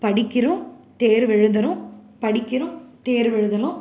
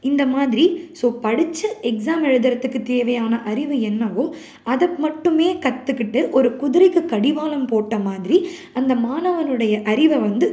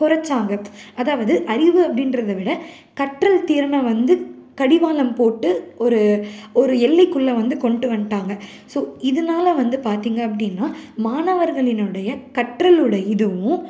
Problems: none marked